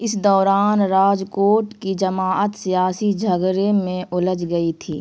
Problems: constant background noise